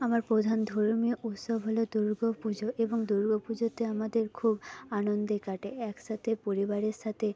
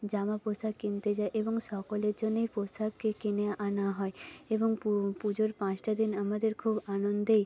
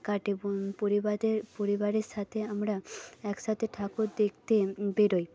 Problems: background sounds at intervals, low volume